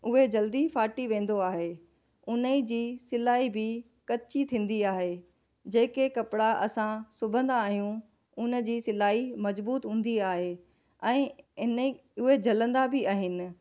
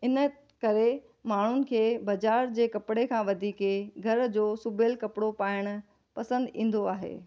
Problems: none marked